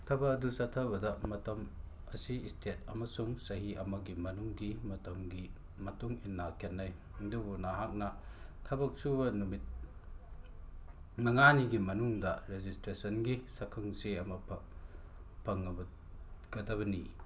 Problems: background sounds at intervals